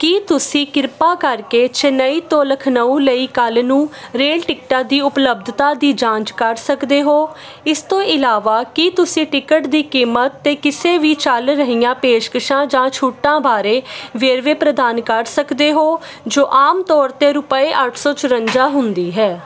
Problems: constant background noise, background conversations at intervals